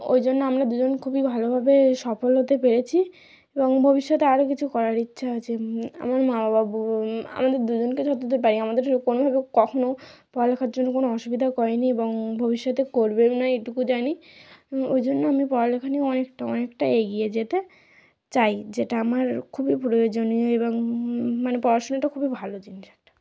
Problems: background conversations at intervals